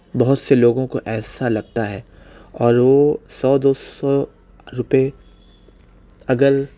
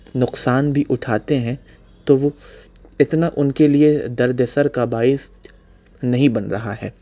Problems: none marked